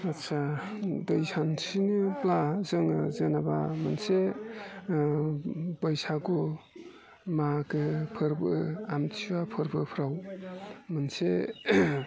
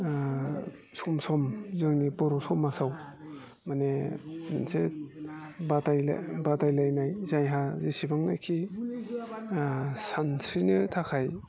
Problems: constant background noise